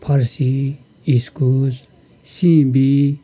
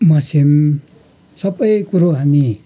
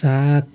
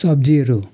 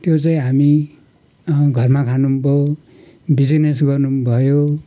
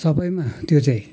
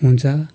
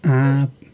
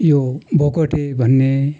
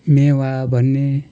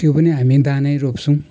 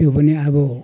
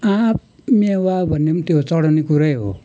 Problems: constant background noise